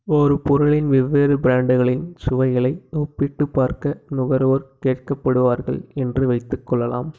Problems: background sounds at intervals